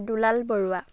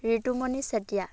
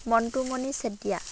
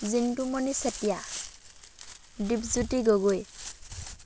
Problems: constant background noise